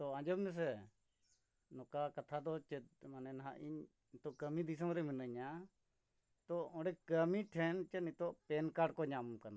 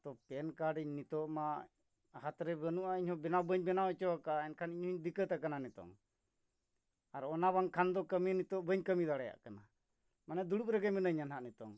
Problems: none marked